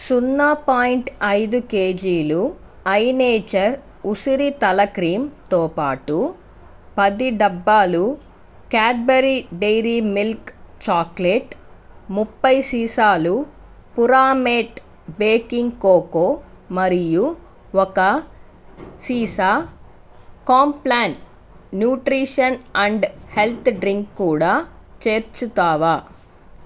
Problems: constant background noise